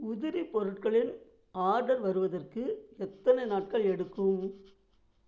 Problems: low volume